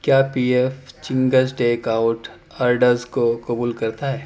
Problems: none marked